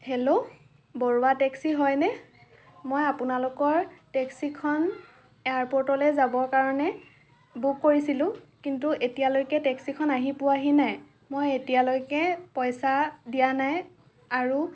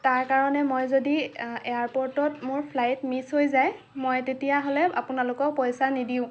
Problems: none marked